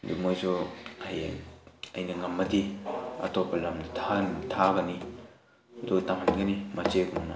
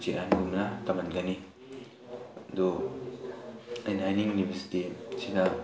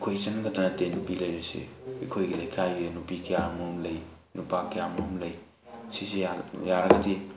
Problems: background sounds at intervals, background conversations at intervals